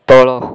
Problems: none marked